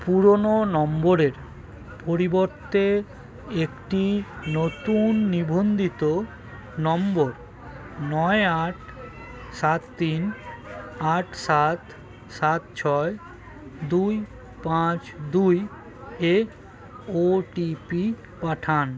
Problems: constant background noise, continuous background conversations